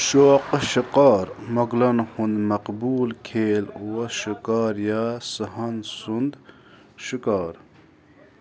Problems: constant background noise, continuous background conversations